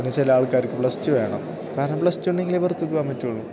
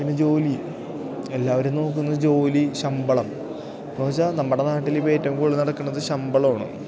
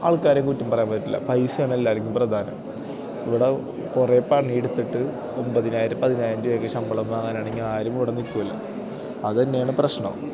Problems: none marked